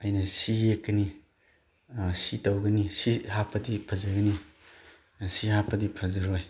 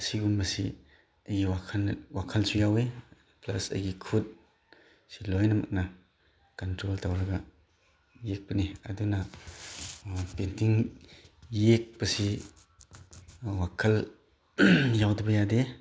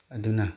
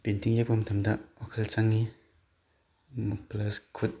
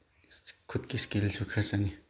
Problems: background conversations at intervals